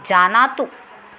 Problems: constant background noise